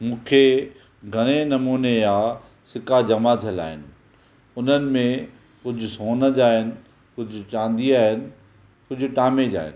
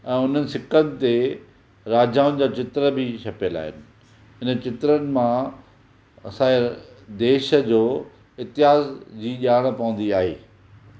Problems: none marked